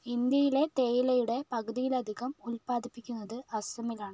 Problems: low volume